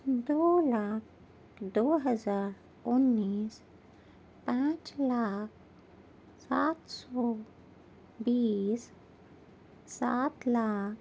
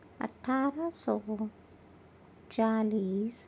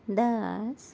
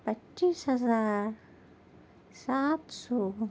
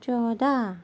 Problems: none marked